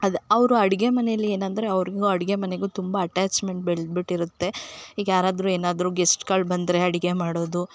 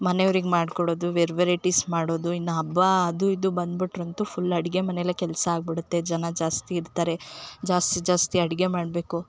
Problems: none marked